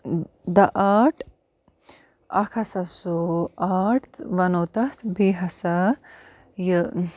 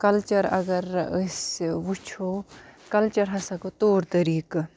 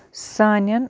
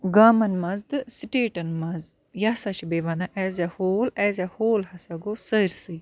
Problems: background sounds at intervals